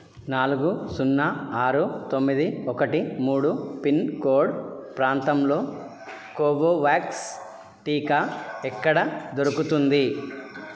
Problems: none marked